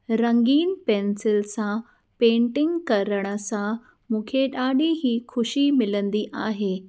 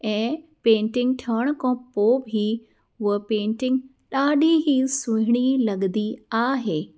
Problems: none marked